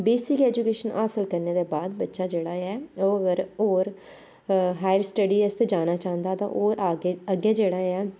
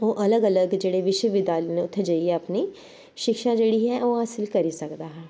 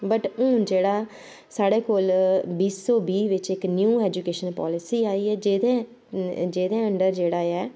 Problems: constant background noise